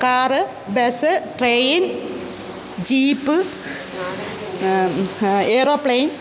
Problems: constant background noise, background conversations at intervals